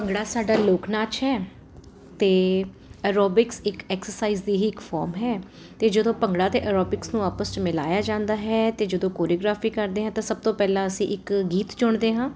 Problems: constant background noise